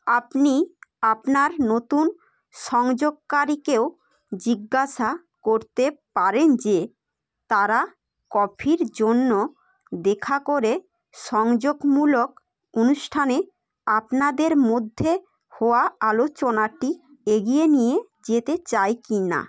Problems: none marked